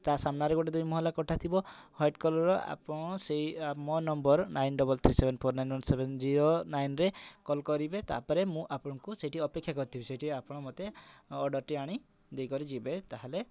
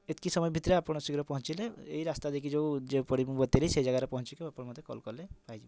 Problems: none marked